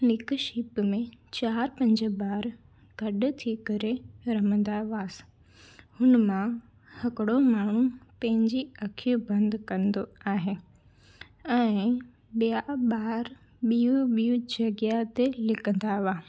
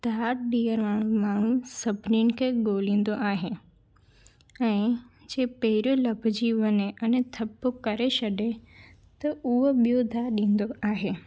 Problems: none marked